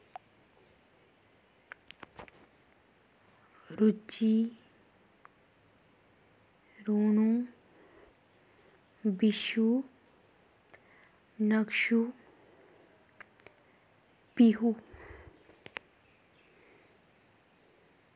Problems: background sounds at intervals